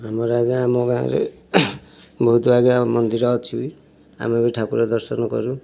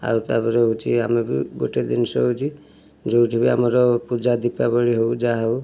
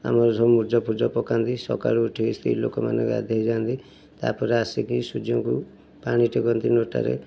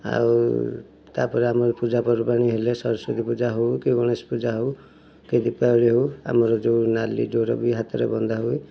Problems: none marked